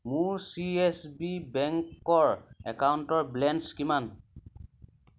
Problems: none marked